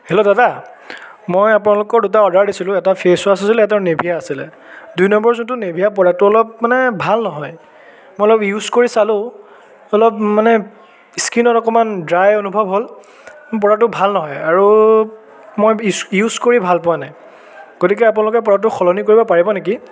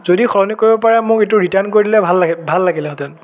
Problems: continuous background conversations, echo